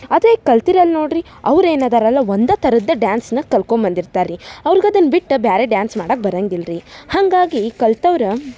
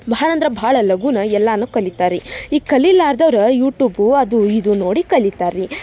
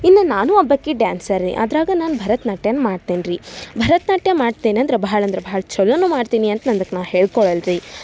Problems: background sounds at intervals